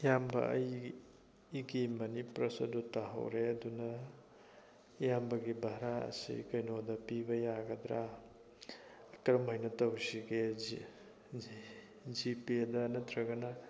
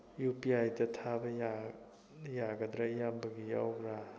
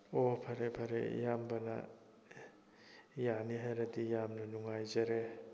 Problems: background sounds at intervals, continuous background conversations